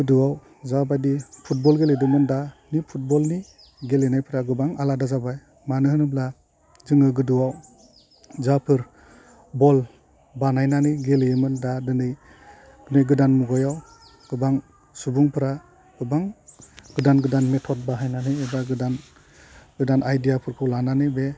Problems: low volume